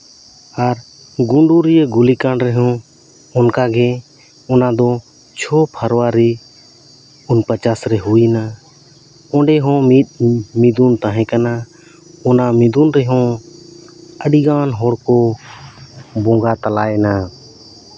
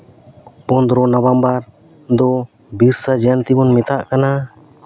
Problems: constant background noise